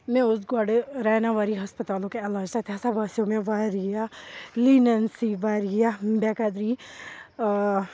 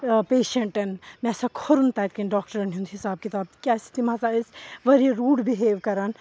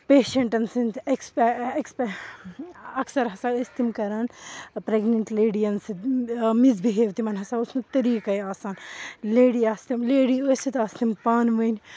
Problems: constant background noise